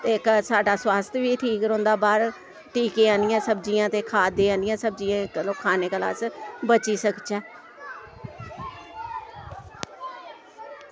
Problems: none marked